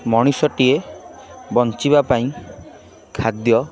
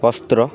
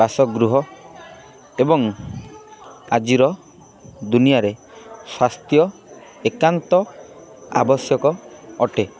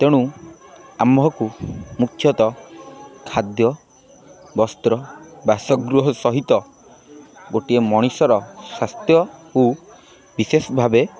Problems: constant background noise, continuous background conversations